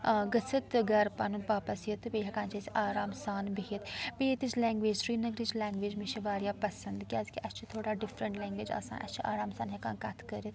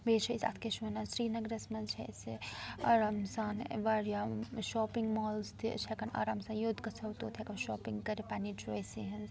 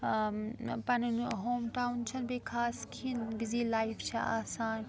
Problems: background sounds at intervals, background conversations at intervals